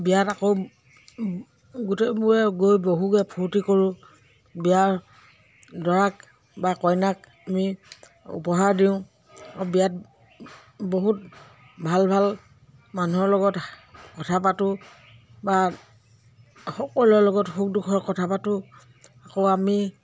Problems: constant background noise